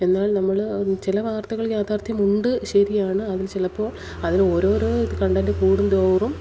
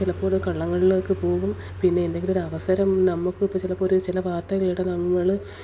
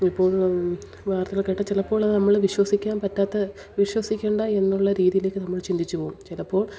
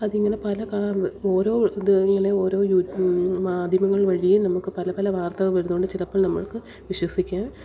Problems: background sounds at intervals, background conversations at intervals